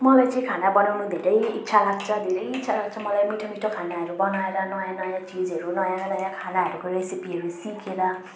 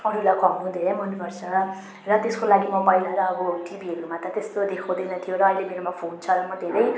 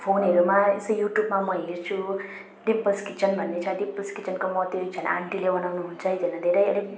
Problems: constant background noise